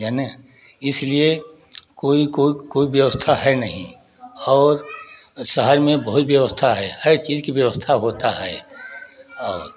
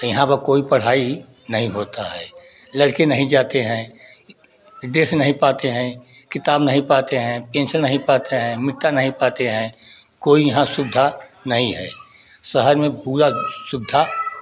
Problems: background sounds at intervals, continuous background conversations